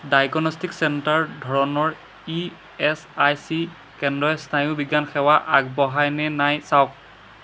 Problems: none marked